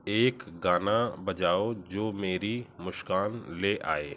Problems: none marked